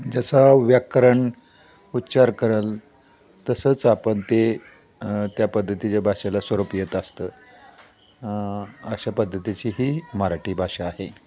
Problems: none marked